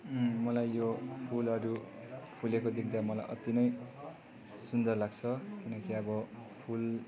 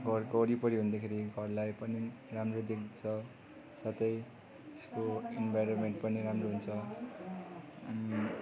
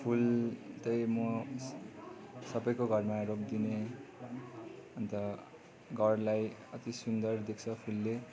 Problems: continuous background conversations